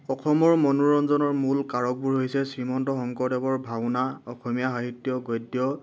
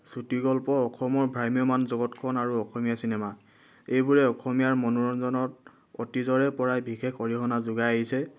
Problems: background sounds at intervals